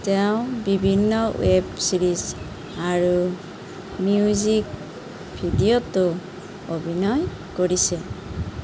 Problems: constant background noise